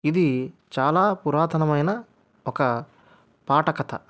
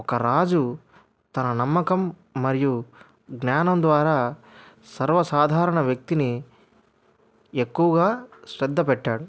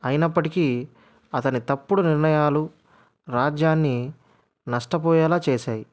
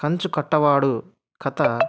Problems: none marked